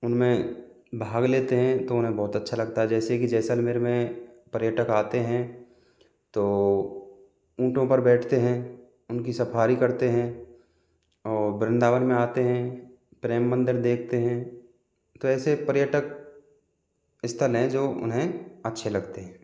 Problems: constant background noise